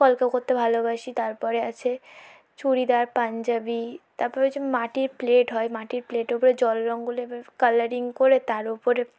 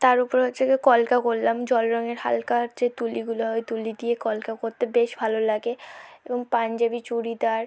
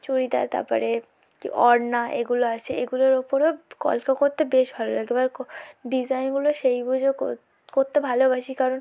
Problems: low volume